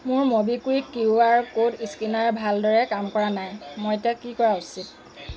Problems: none marked